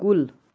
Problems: constant background noise